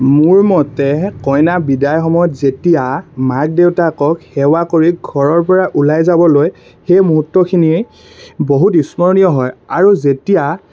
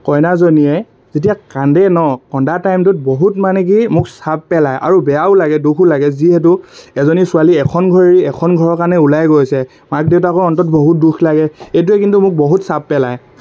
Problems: constant background noise